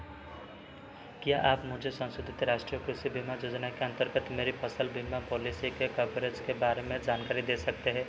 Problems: none marked